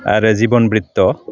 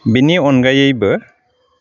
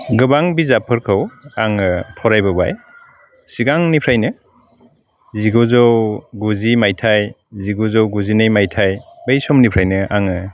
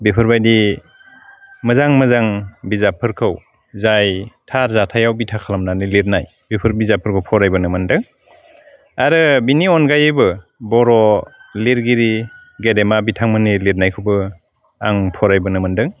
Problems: constant background noise